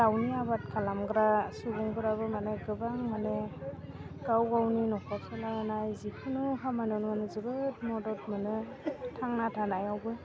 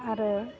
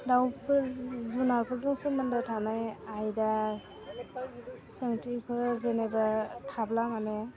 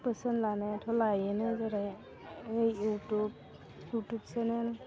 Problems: low volume